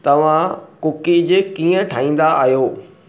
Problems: none marked